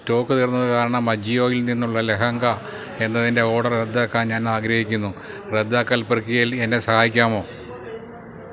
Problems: none marked